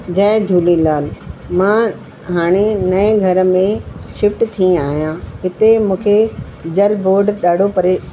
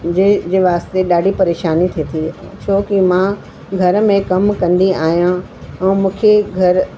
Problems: constant background noise, echo